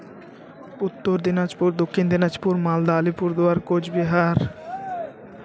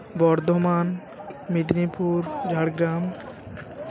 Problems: continuous background conversations